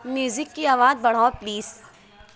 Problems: background sounds at intervals